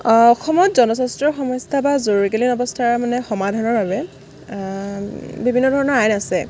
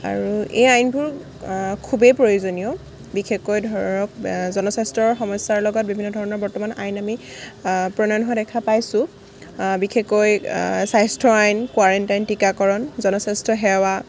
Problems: background sounds at intervals